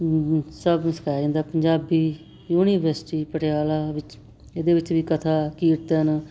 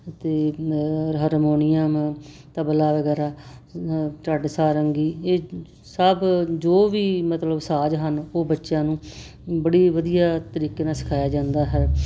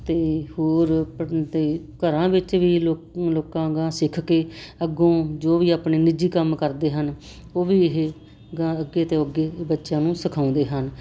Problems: none marked